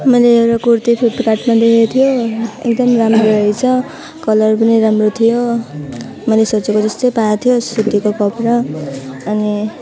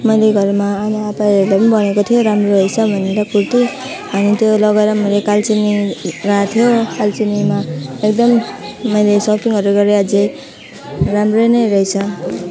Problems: none marked